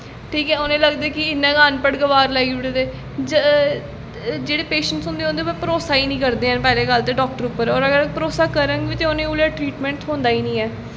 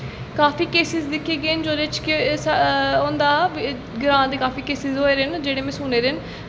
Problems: constant background noise, echo